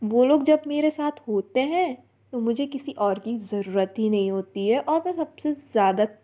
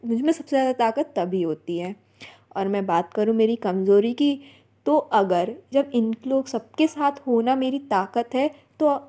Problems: none marked